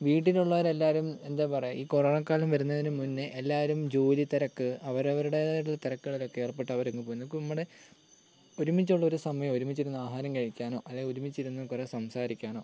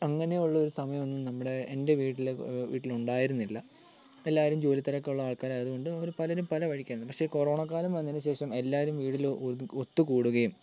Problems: none marked